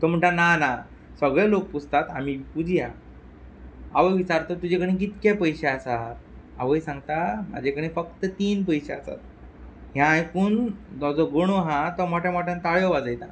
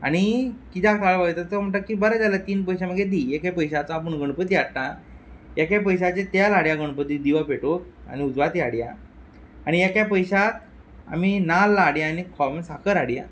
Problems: background sounds at intervals